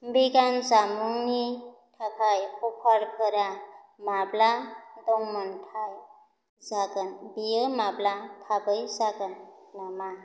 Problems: constant background noise